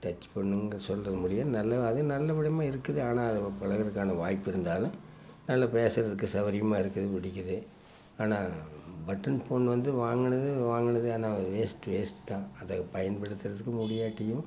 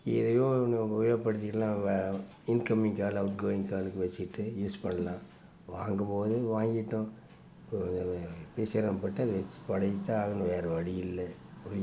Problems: constant background noise